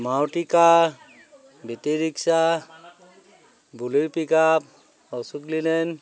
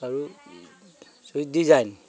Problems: none marked